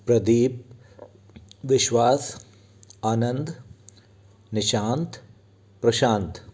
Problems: constant background noise